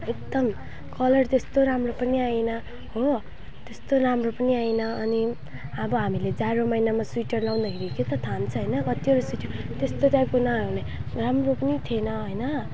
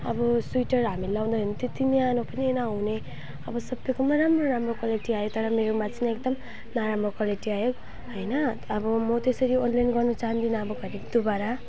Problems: none marked